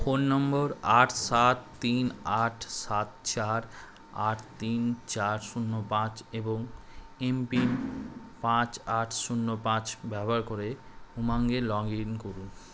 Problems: constant background noise